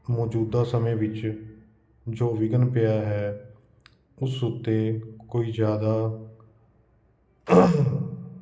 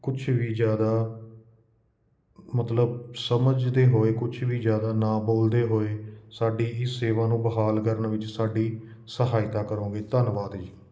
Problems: constant background noise